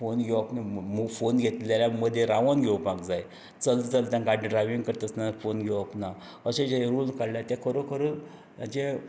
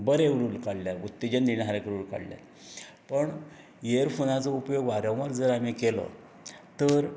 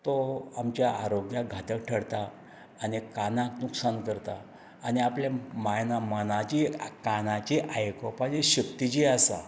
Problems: none marked